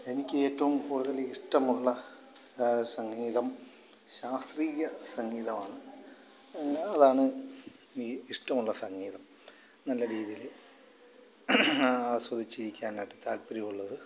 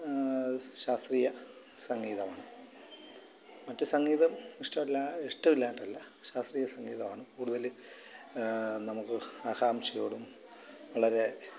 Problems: constant background noise, background conversations at intervals, low volume